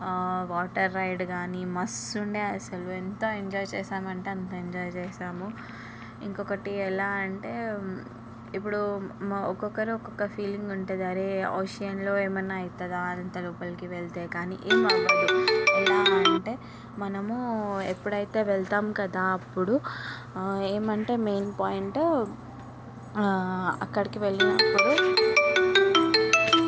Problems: background sounds at intervals